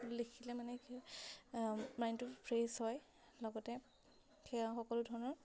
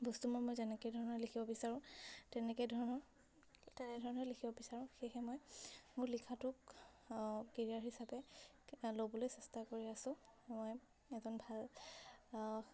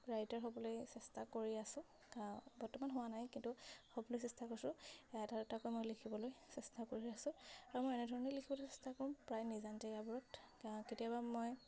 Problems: none marked